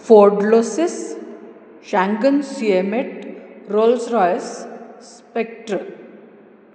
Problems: low volume